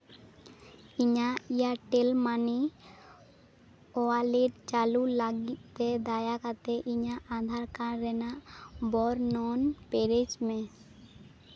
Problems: none marked